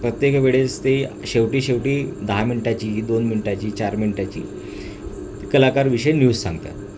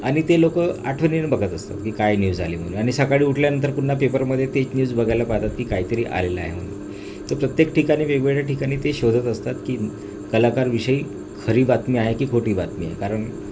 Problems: constant background noise